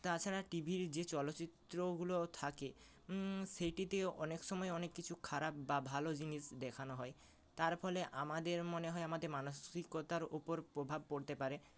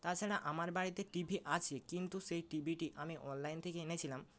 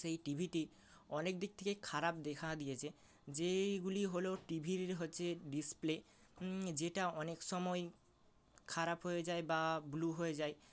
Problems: constant background noise